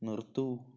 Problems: low volume